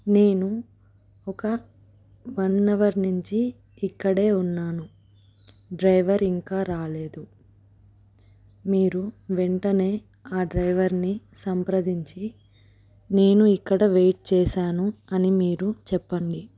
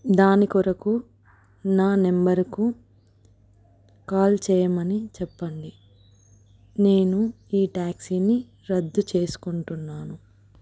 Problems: none marked